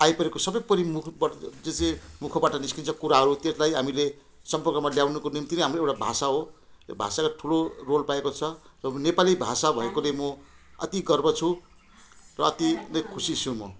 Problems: none marked